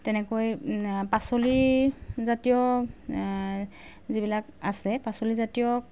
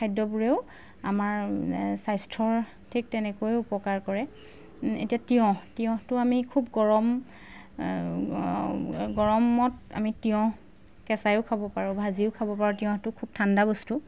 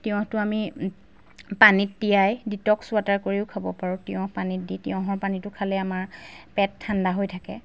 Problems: background sounds at intervals